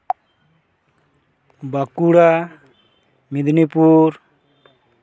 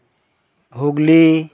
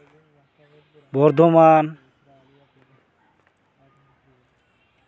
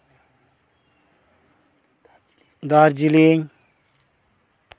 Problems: background sounds at intervals